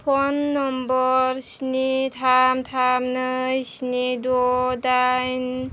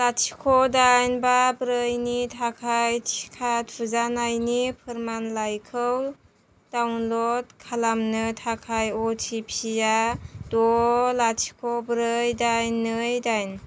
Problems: none marked